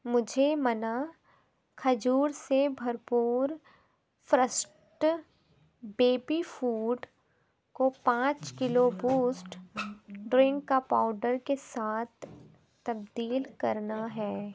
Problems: constant background noise, background conversations at intervals